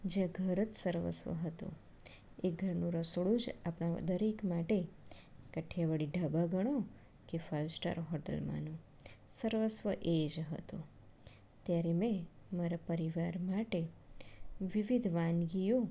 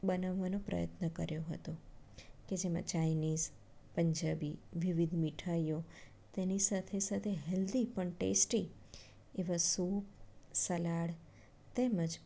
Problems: none marked